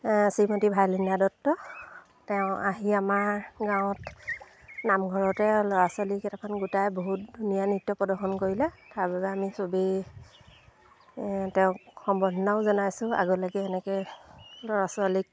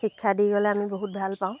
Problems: constant background noise, background conversations at intervals